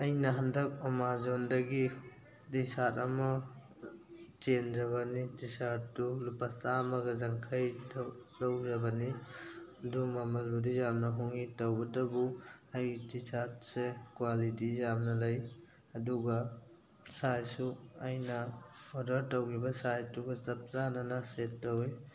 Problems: constant background noise, background conversations at intervals